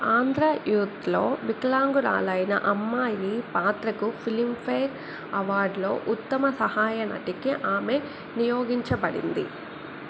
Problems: constant background noise